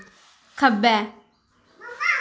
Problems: background sounds at intervals, echo